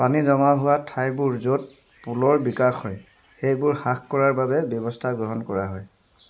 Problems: none marked